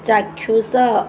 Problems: none marked